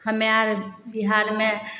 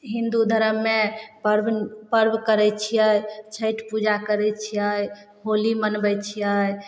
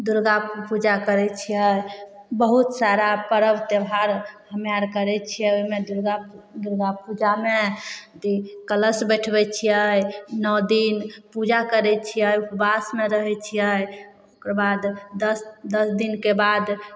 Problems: none marked